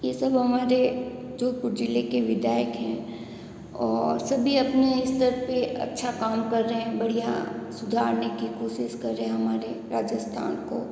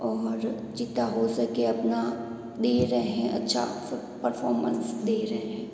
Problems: echo